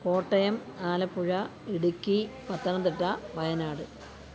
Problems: constant background noise